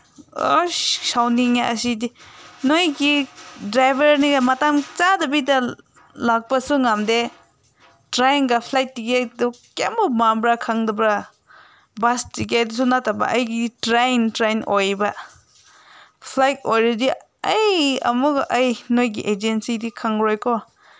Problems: none marked